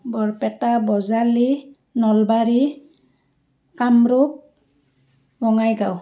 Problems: background sounds at intervals